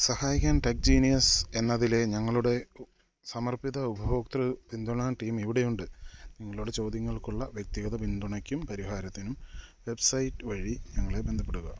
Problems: low volume